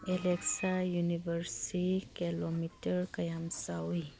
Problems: background conversations at intervals